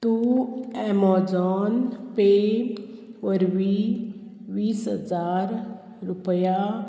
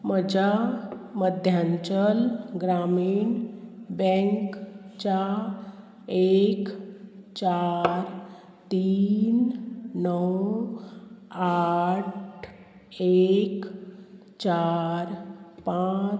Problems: constant background noise